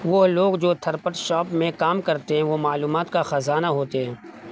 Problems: constant background noise